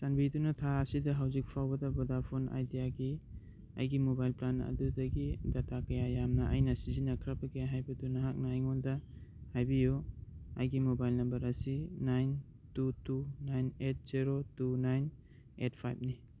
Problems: none marked